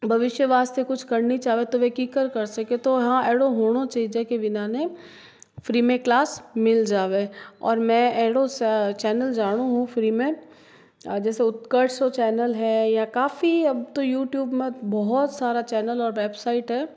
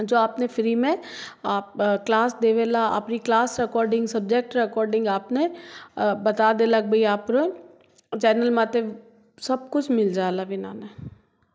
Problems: none marked